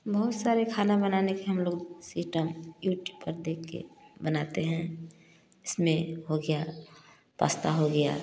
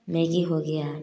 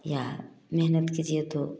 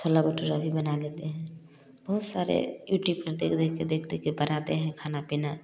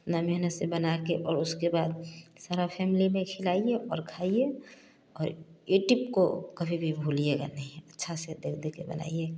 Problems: none marked